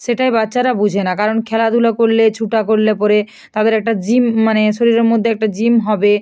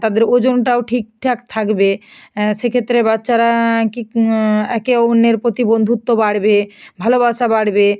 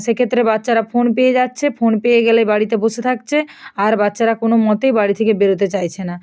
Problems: none marked